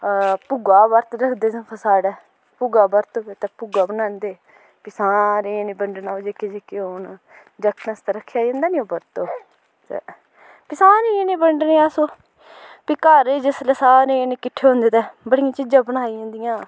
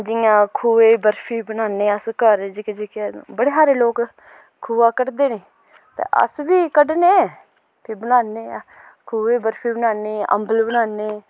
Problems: background sounds at intervals